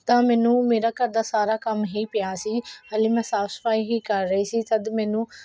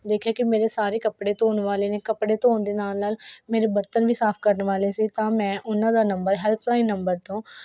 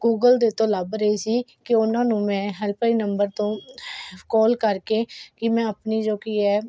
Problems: none marked